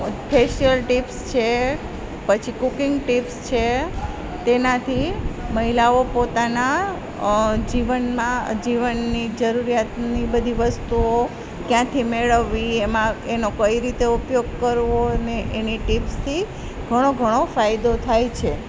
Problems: constant background noise